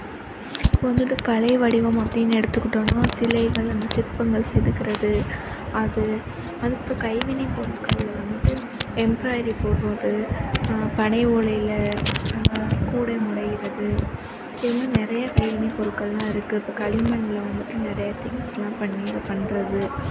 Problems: background sounds at intervals